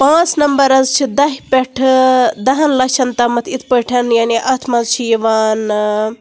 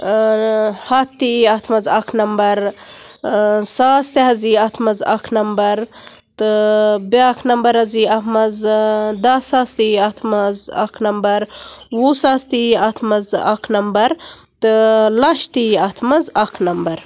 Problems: none marked